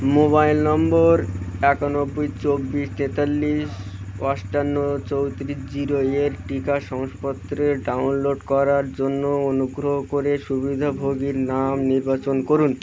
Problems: none marked